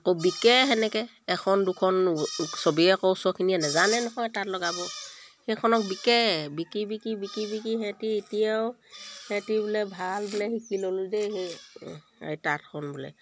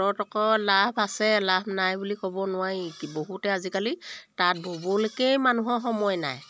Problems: background sounds at intervals